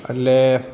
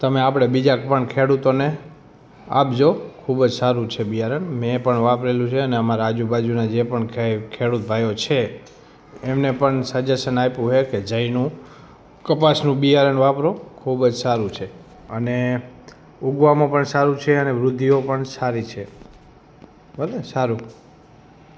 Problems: background conversations at intervals